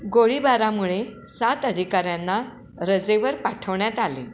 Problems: constant background noise, echo